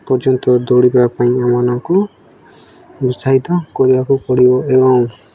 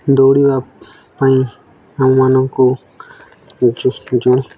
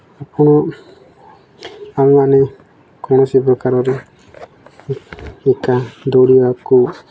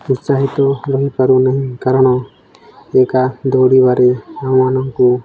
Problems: none marked